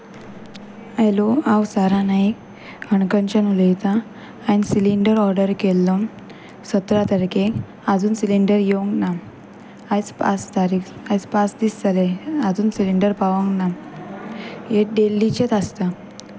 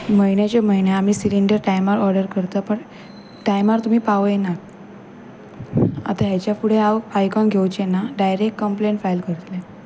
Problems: none marked